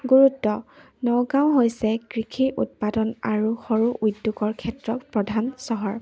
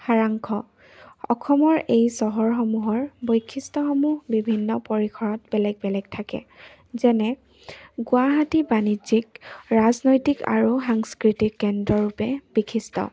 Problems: none marked